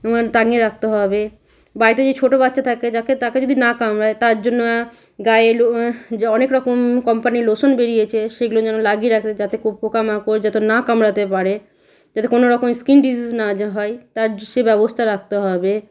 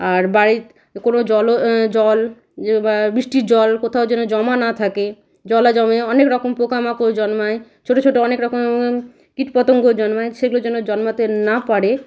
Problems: constant background noise